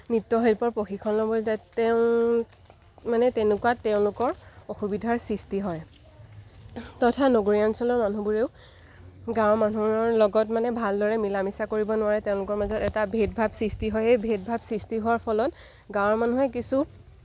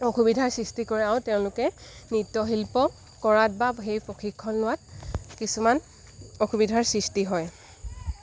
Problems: background sounds at intervals